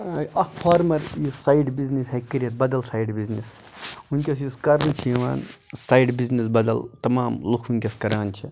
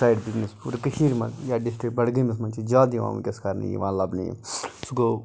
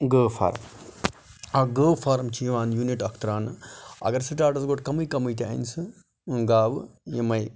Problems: none marked